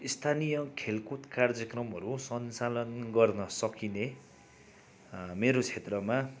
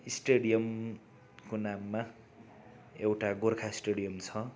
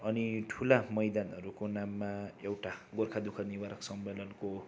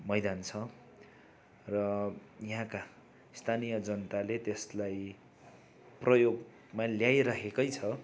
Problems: constant background noise